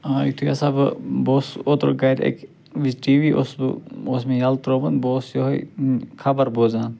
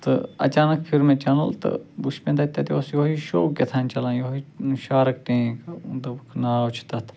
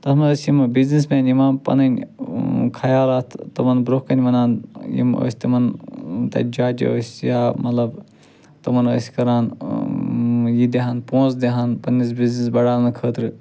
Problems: none marked